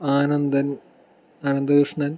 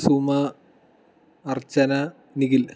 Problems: none marked